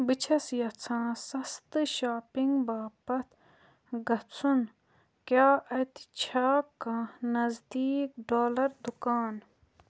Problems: none marked